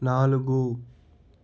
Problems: constant background noise